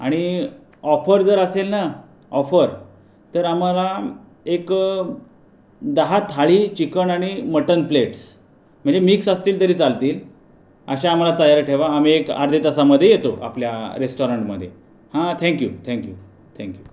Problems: constant background noise